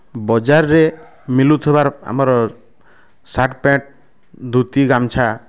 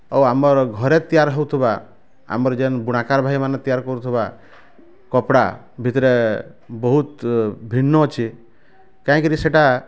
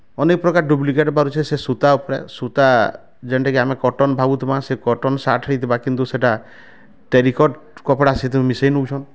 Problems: none marked